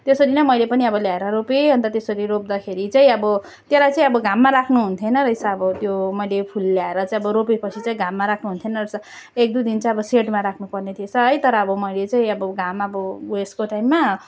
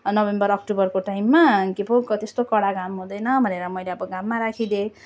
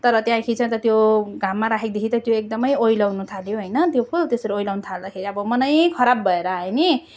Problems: none marked